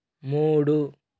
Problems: constant background noise